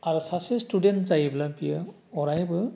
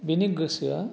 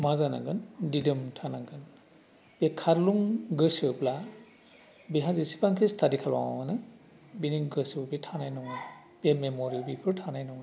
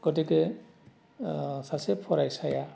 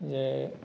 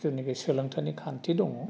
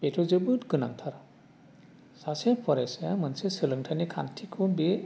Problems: constant background noise